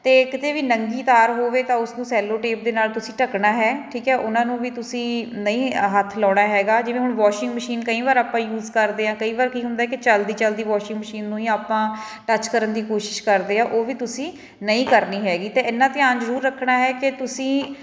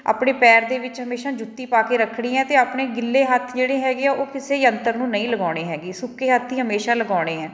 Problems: background sounds at intervals, background conversations at intervals